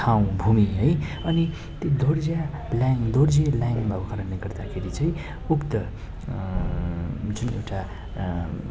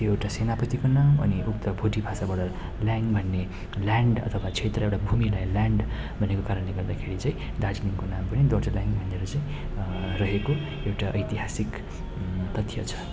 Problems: none marked